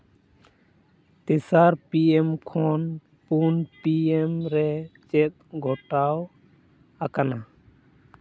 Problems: none marked